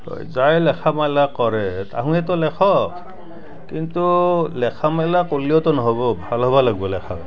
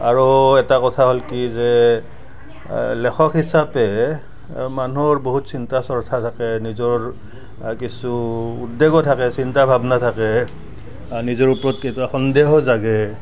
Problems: background sounds at intervals, background conversations at intervals